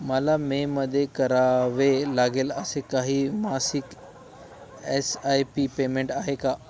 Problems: none marked